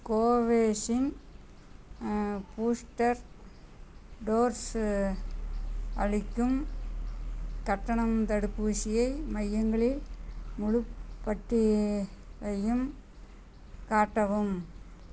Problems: none marked